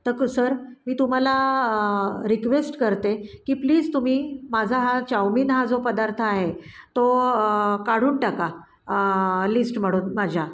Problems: background sounds at intervals